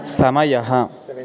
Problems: constant background noise, continuous background conversations